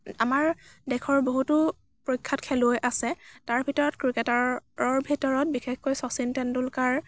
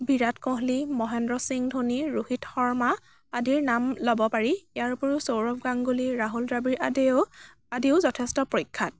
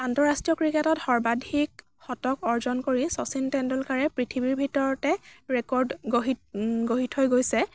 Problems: none marked